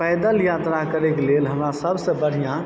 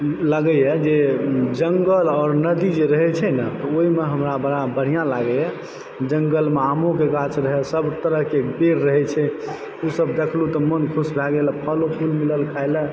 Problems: background sounds at intervals